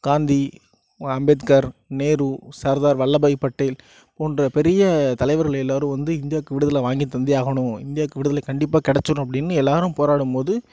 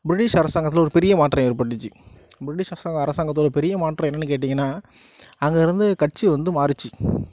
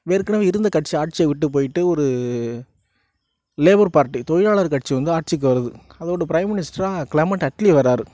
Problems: none marked